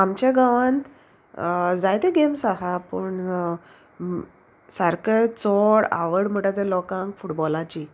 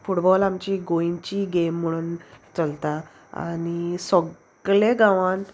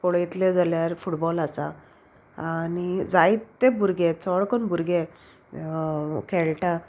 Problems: constant background noise